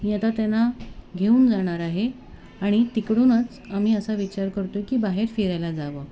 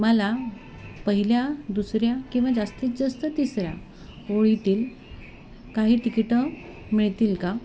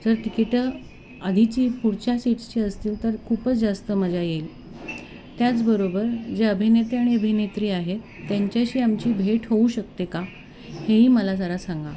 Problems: constant background noise